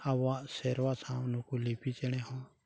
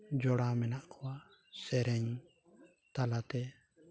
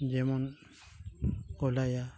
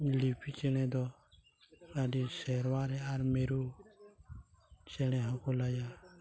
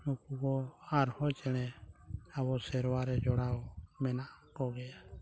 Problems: background sounds at intervals, background conversations at intervals